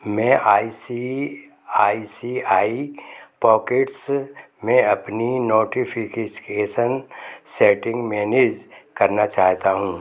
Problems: background sounds at intervals